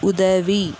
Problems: background sounds at intervals